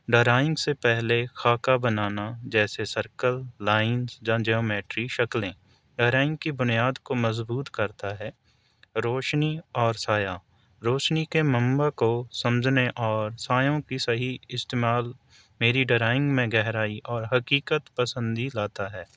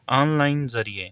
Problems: none marked